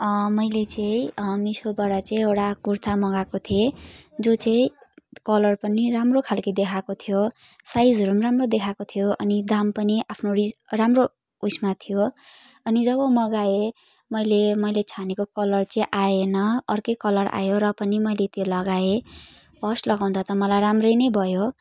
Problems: none marked